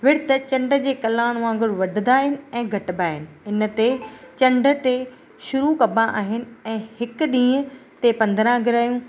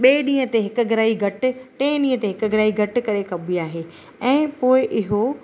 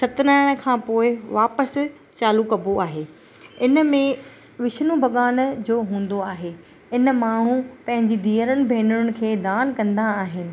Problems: constant background noise